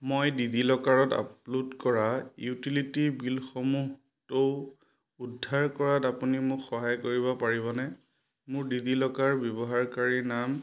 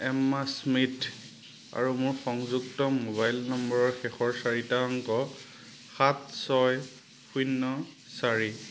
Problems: constant background noise